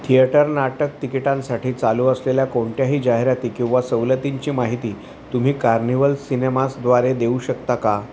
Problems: constant background noise